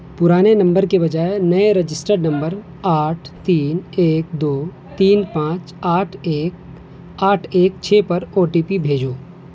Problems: constant background noise